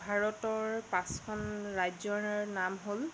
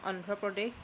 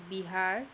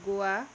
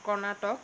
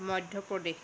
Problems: constant background noise